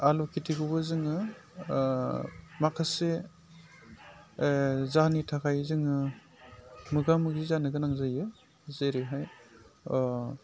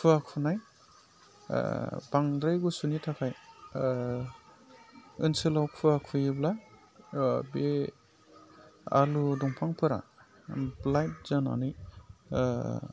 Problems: constant background noise